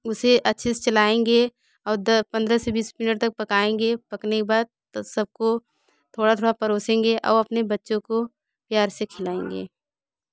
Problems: background sounds at intervals